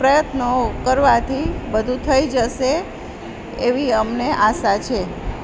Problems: constant background noise